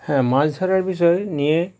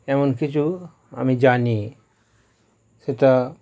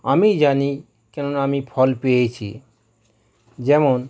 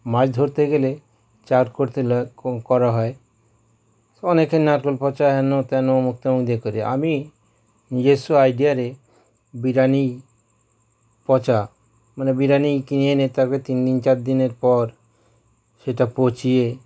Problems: none marked